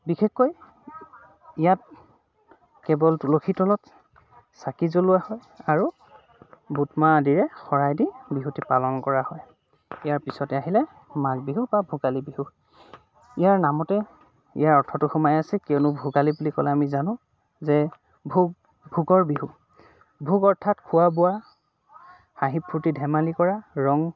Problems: constant background noise, background conversations at intervals